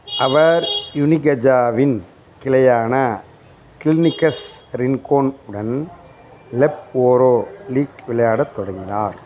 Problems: constant background noise